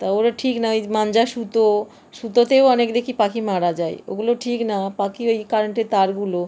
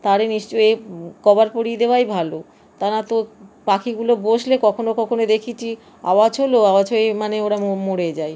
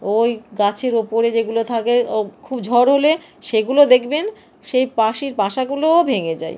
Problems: constant background noise